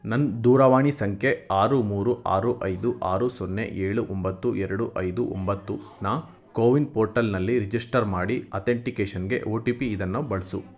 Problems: background conversations at intervals